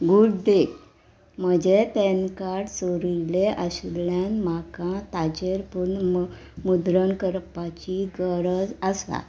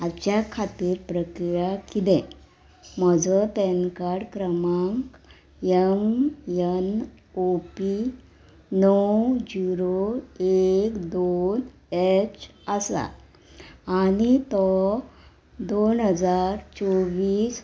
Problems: background sounds at intervals